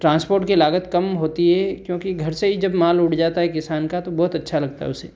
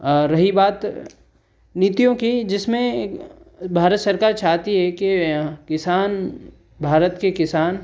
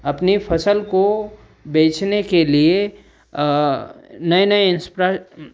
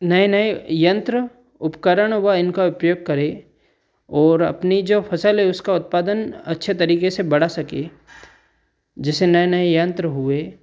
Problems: none marked